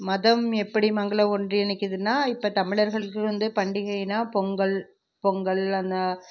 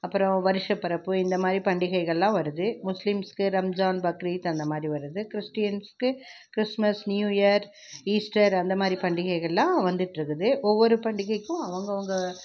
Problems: none marked